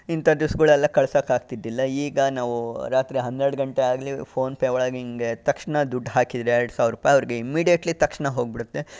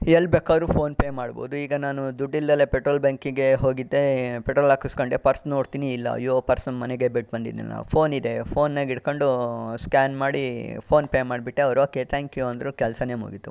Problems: background sounds at intervals